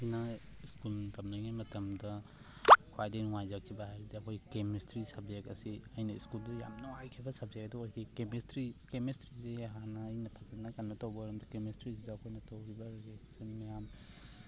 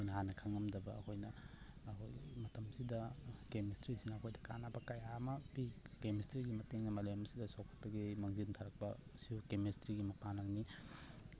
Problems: constant background noise, low volume